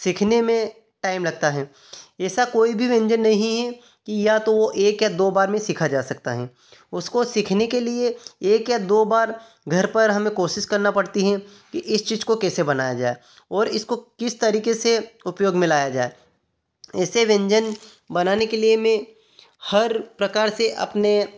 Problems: none marked